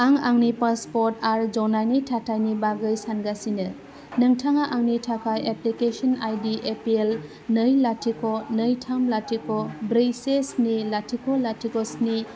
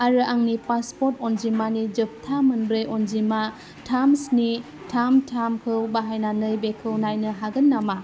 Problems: constant background noise